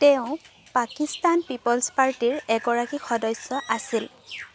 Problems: constant background noise